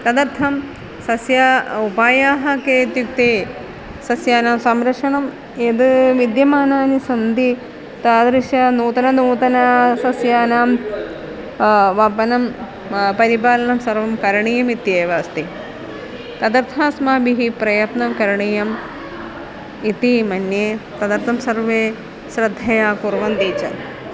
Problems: constant background noise, continuous background conversations